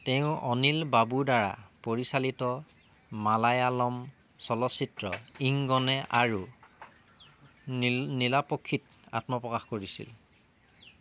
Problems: background sounds at intervals